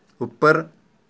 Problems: none marked